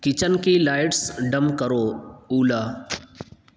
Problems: constant background noise, echo